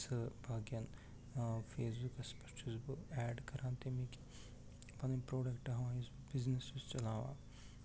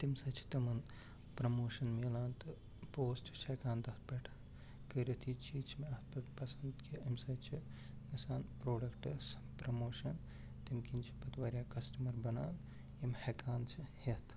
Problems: constant background noise, low volume